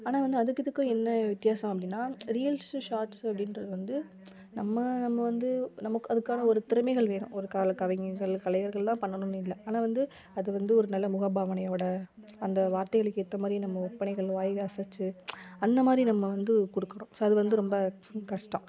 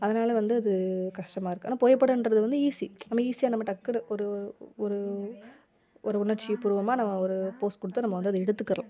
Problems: background conversations at intervals